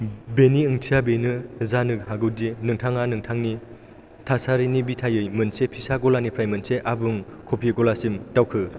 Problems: none marked